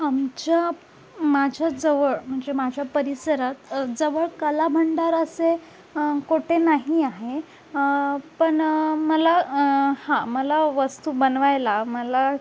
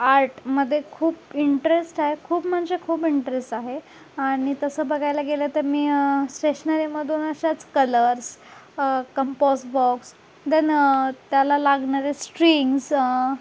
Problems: none marked